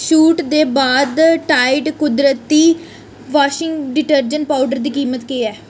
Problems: none marked